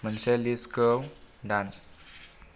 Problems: low volume